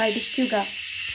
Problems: constant background noise